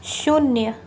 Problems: constant background noise